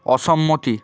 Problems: constant background noise